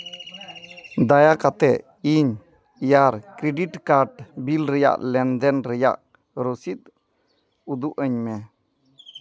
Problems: background sounds at intervals